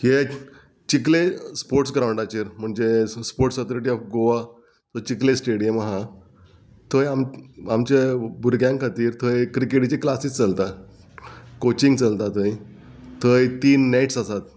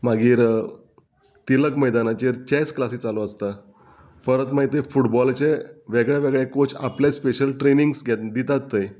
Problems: none marked